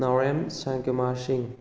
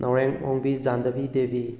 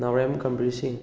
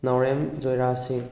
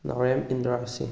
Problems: background conversations at intervals